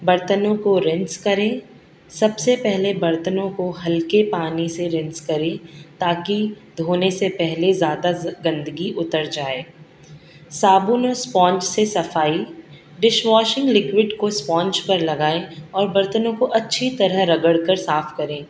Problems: constant background noise